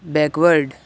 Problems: none marked